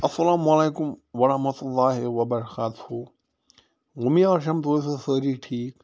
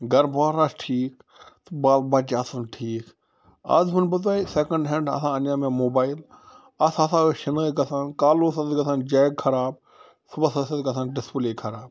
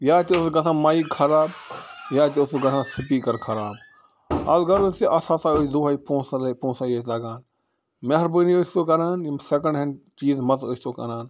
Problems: background sounds at intervals